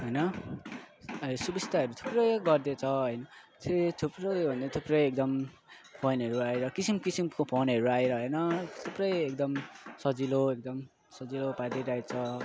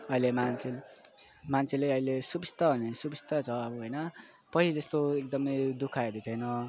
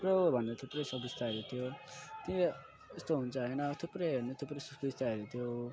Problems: constant background noise